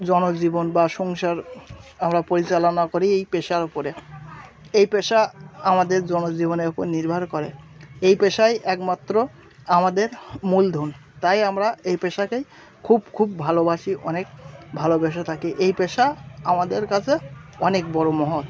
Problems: none marked